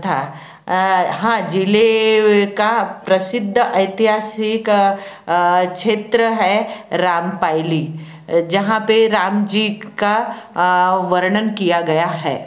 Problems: background sounds at intervals